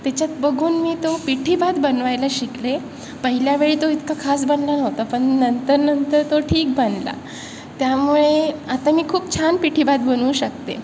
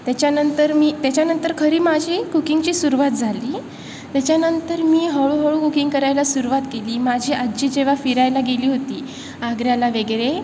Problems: constant background noise